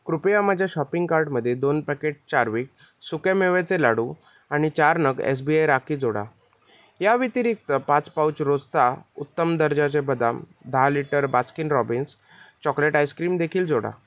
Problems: background sounds at intervals